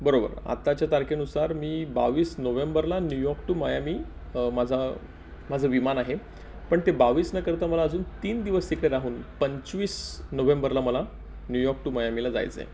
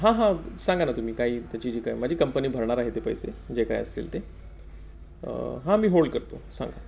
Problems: none marked